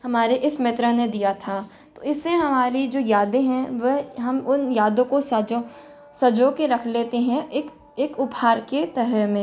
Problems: constant background noise